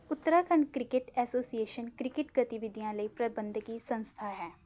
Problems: background conversations at intervals